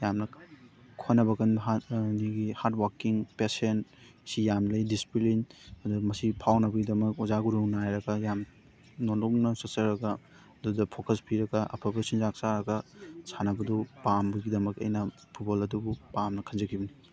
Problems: constant background noise, background conversations at intervals